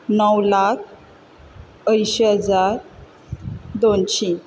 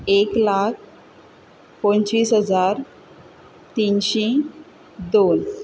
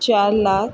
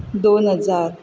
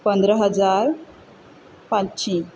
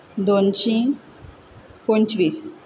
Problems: background sounds at intervals